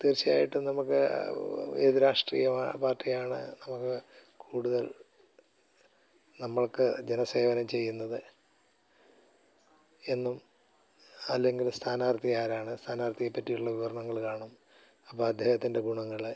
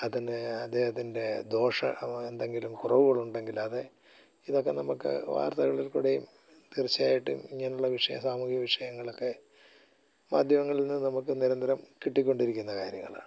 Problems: none marked